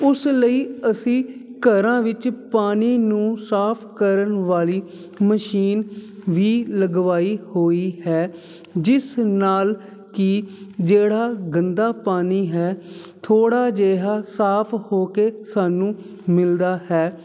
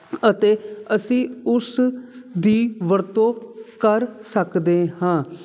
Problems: constant background noise